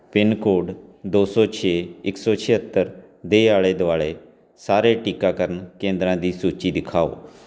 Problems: none marked